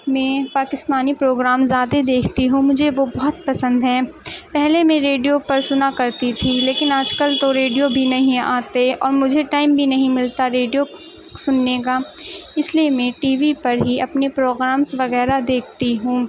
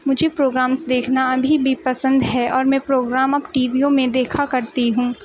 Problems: constant background noise